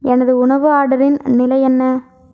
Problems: none marked